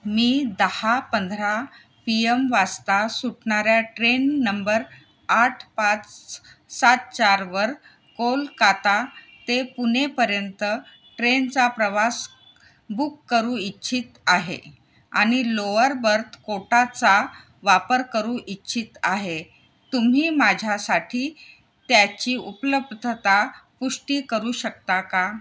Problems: none marked